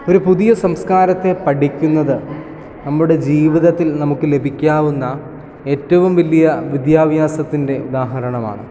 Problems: background conversations at intervals